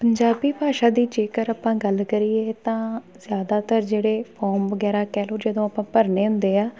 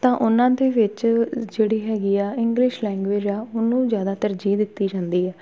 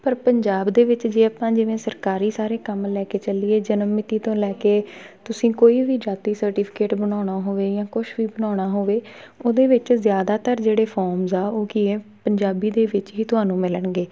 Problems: continuous background conversations